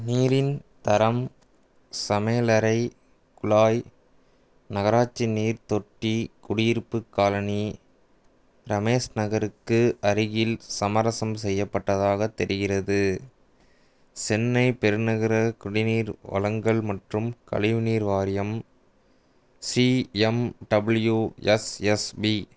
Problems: none marked